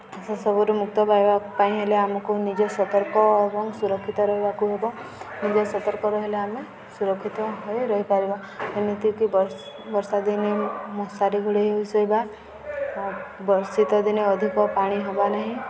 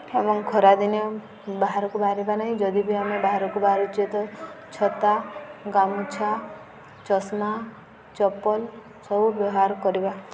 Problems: constant background noise, continuous background conversations